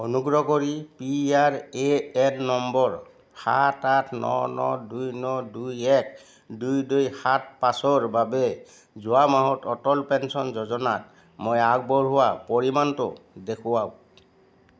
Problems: none marked